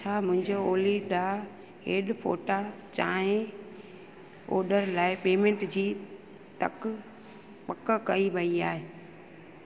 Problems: constant background noise